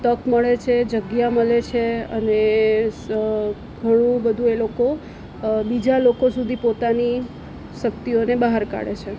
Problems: none marked